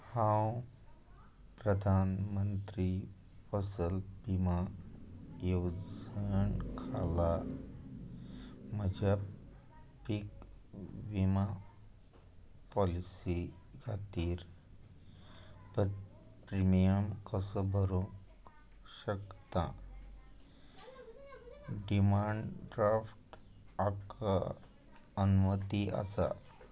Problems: constant background noise